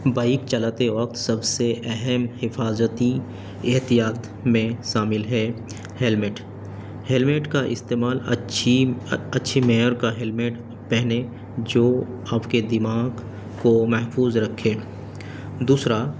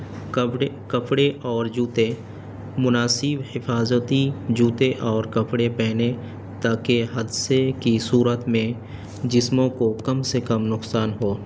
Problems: constant background noise